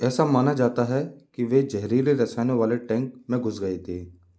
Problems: background sounds at intervals